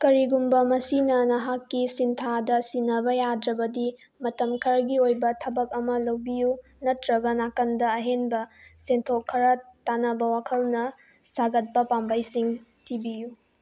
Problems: none marked